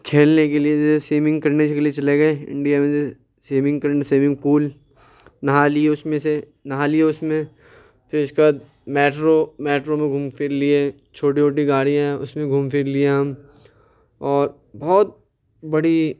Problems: none marked